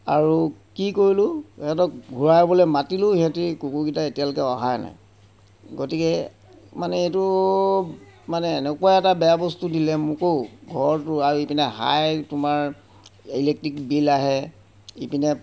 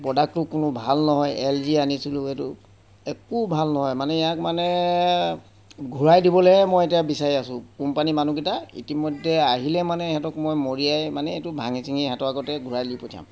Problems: none marked